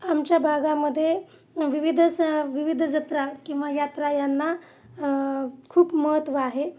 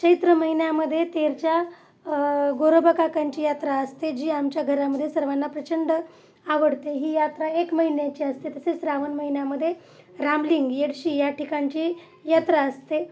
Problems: none marked